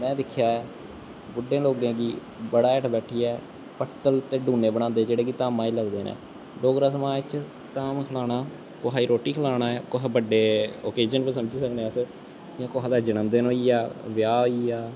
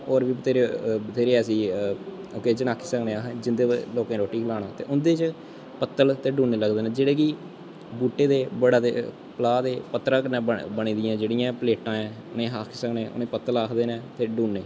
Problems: constant background noise, echo